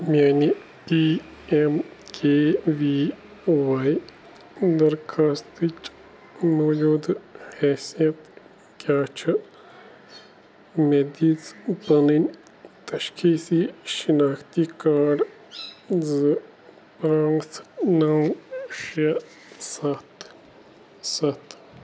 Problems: none marked